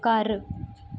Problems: none marked